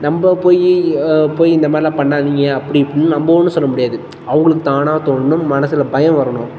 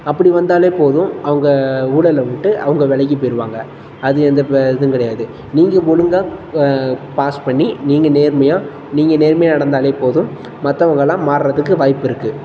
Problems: constant background noise